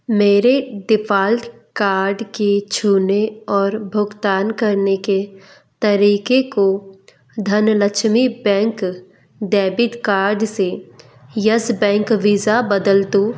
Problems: none marked